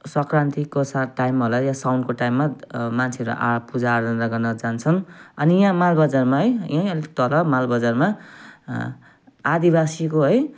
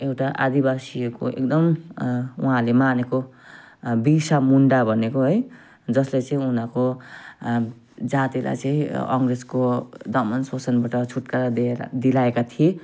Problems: none marked